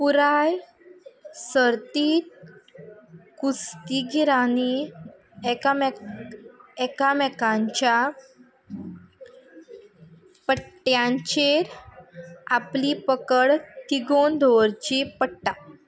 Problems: background sounds at intervals